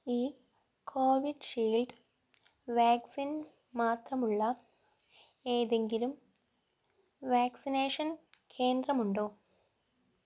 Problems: low volume